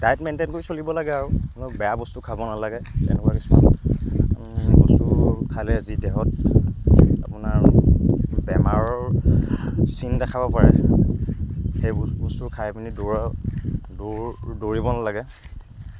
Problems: background sounds at intervals, background conversations at intervals